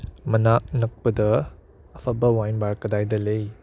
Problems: none marked